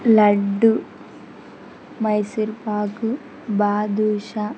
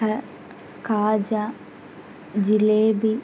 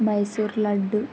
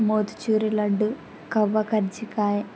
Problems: background sounds at intervals